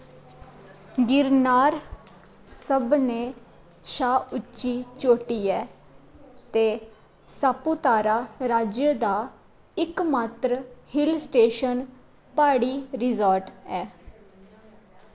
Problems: constant background noise